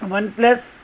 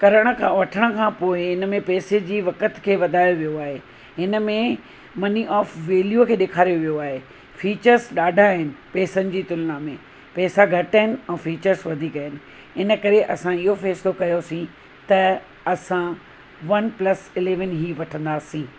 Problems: constant background noise